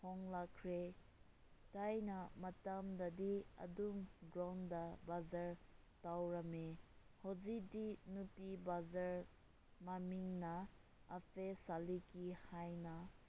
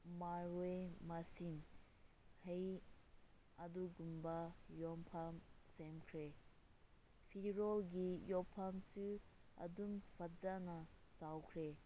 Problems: low volume